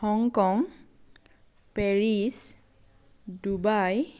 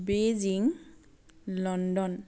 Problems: none marked